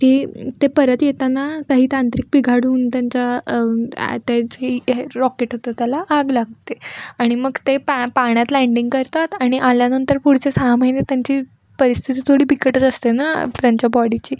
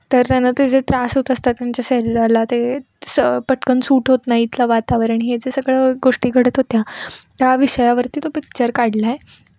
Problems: background sounds at intervals